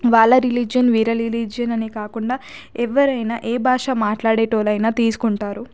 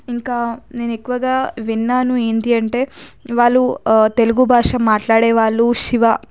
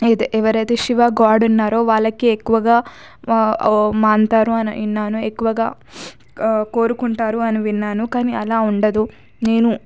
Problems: background sounds at intervals